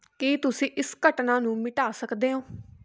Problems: background conversations at intervals